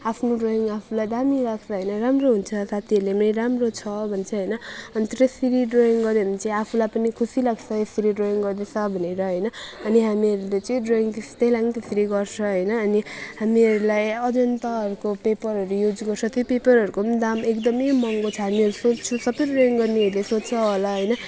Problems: background sounds at intervals